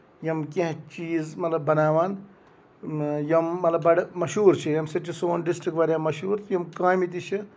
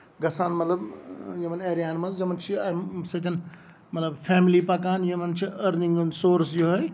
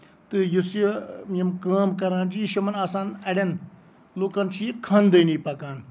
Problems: background sounds at intervals